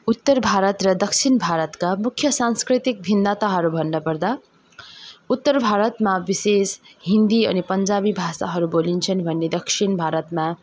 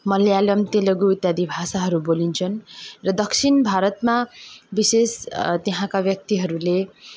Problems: background conversations at intervals